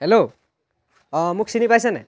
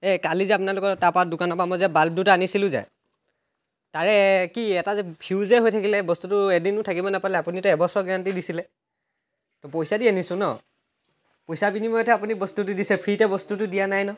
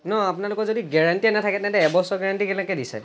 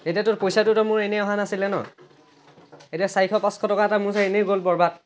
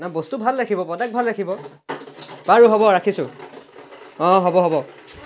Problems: constant background noise